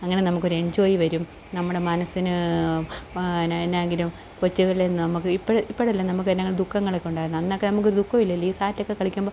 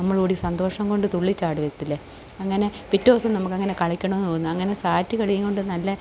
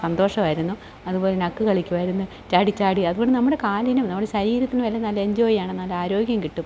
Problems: none marked